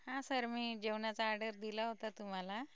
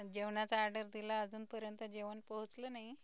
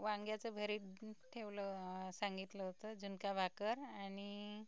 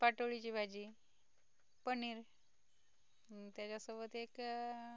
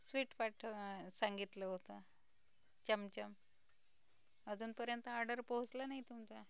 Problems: background sounds at intervals, low volume